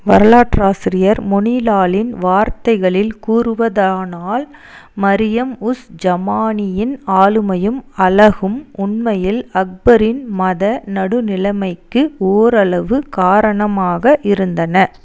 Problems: none marked